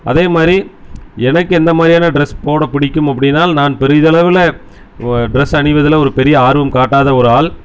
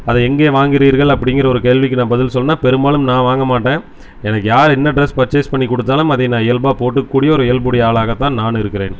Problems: none marked